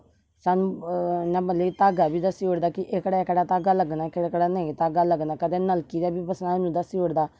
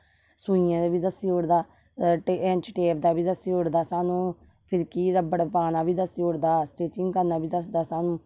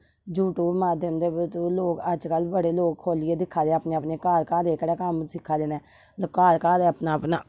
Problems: none marked